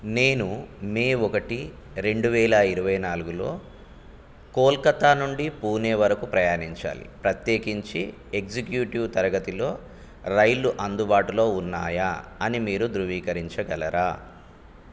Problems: none marked